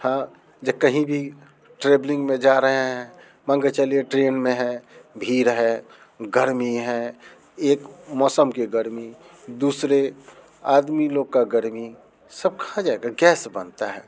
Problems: background sounds at intervals